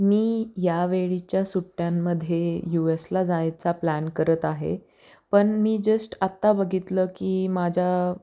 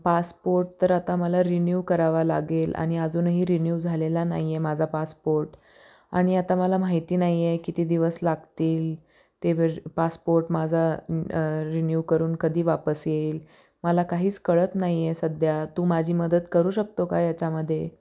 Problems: none marked